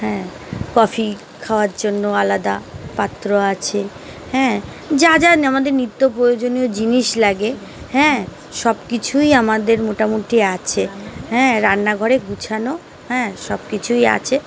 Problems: none marked